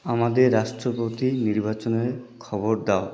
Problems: background sounds at intervals